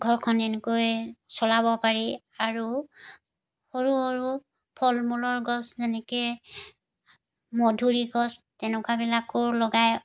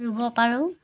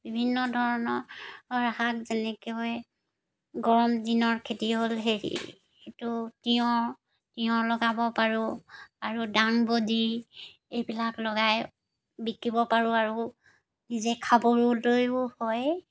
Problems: none marked